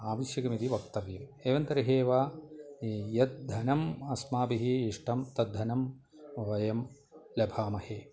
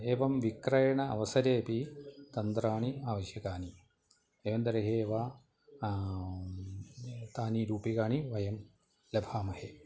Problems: continuous background conversations